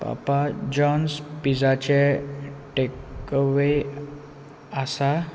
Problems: constant background noise